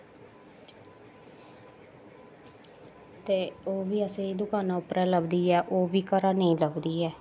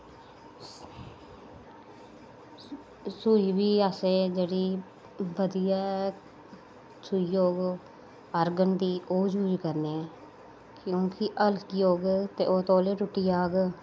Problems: none marked